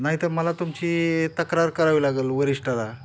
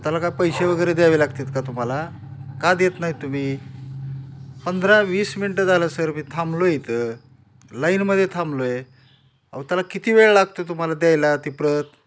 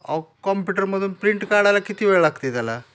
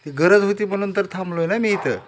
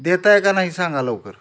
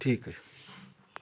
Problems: none marked